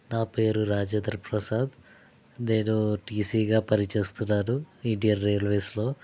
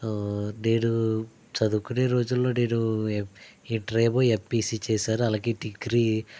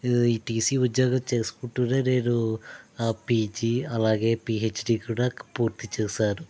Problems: none marked